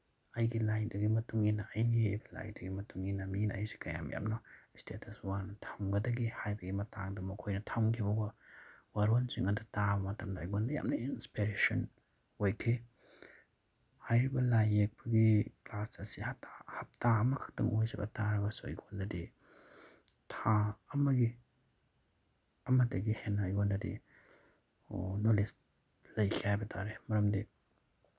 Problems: none marked